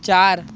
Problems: constant background noise, continuous background conversations